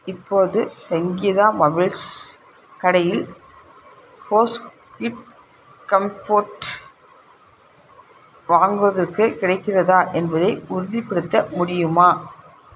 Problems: constant background noise